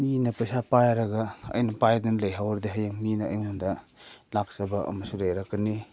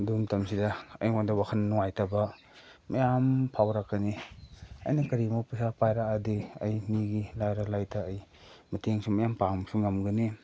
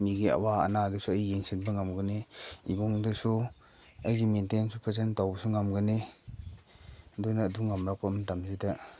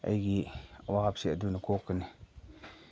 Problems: none marked